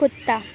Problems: constant background noise